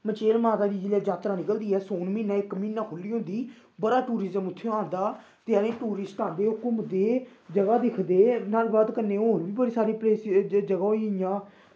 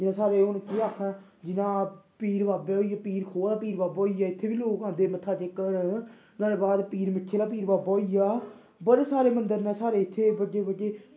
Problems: background sounds at intervals